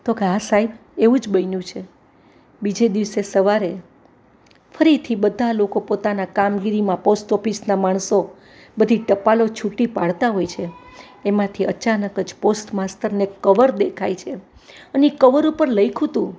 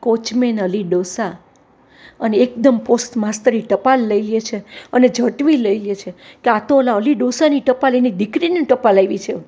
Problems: none marked